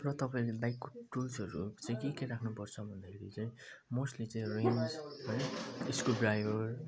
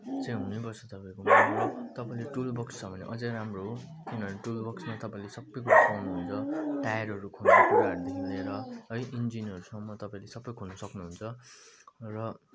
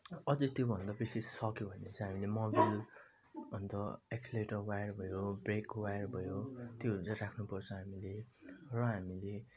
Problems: constant background noise, low volume